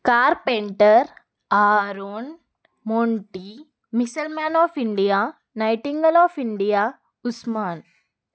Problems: none marked